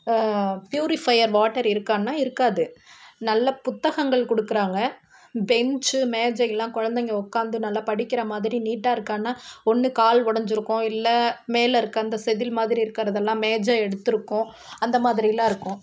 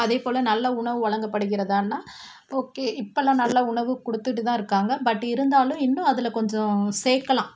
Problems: constant background noise